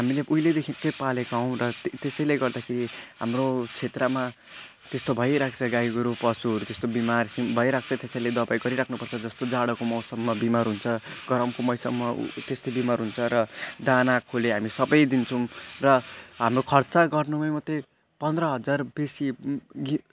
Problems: constant background noise, continuous background conversations